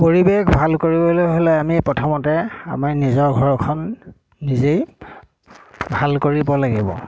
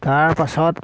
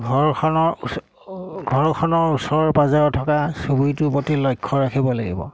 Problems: constant background noise